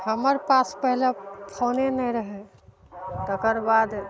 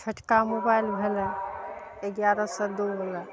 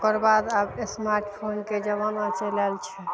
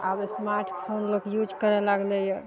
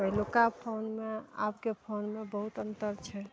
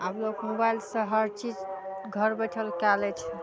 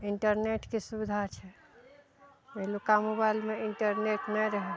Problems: background sounds at intervals